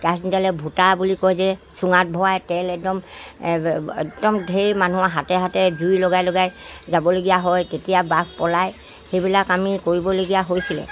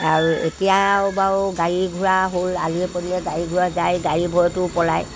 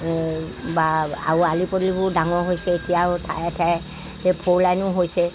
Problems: background sounds at intervals